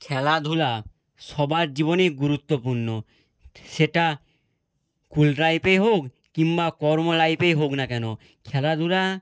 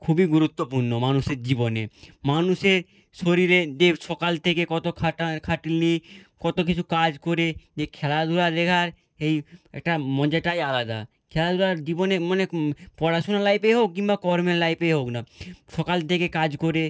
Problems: none marked